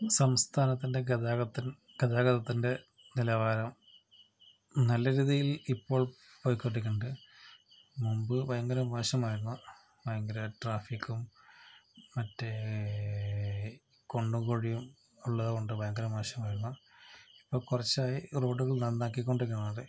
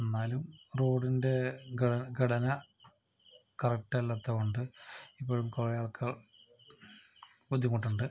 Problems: low volume